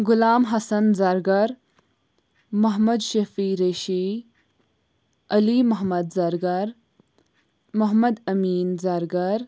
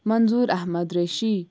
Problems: none marked